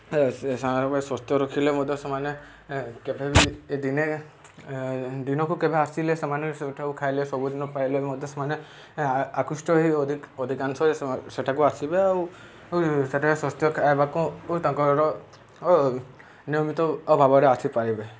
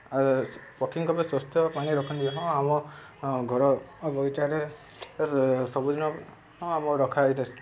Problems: constant background noise